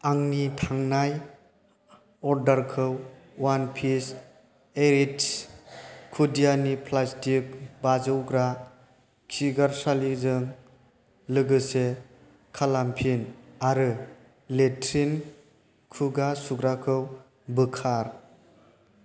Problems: constant background noise